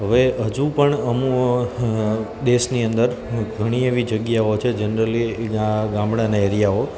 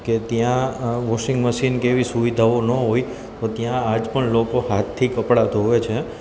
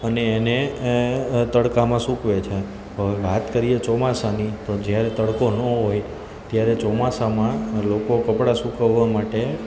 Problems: constant background noise